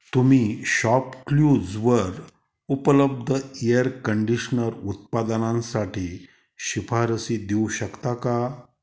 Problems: background sounds at intervals